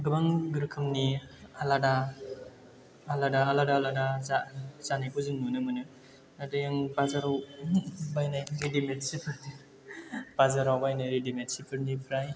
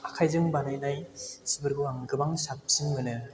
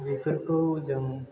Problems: background sounds at intervals